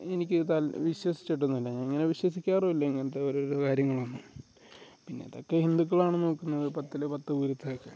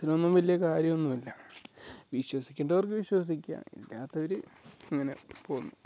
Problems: background sounds at intervals